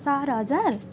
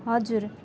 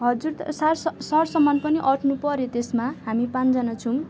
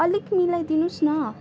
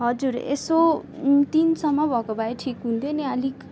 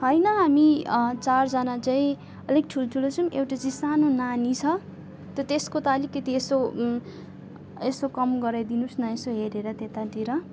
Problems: none marked